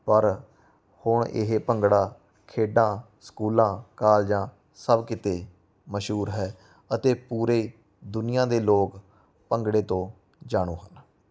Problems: background sounds at intervals